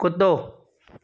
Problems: background sounds at intervals